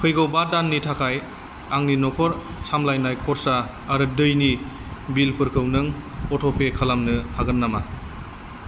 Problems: constant background noise